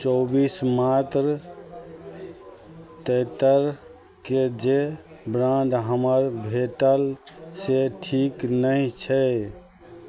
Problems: none marked